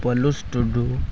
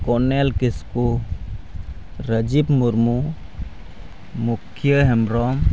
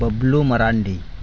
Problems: constant background noise